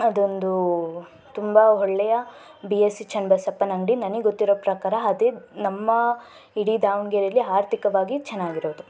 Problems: background sounds at intervals